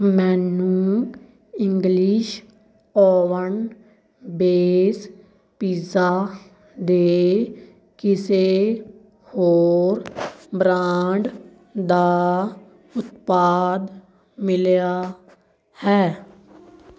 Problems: none marked